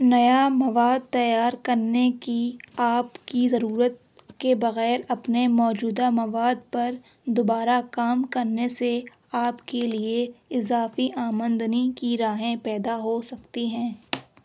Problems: none marked